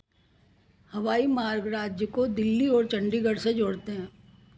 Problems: none marked